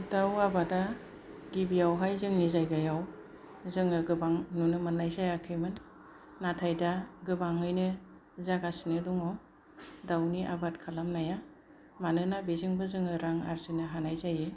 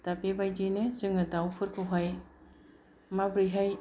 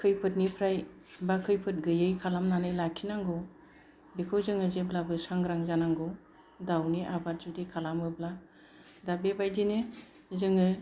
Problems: none marked